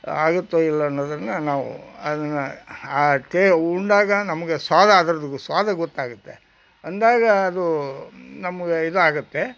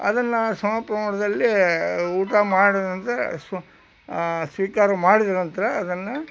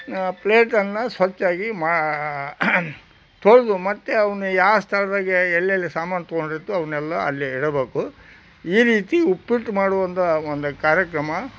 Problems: none marked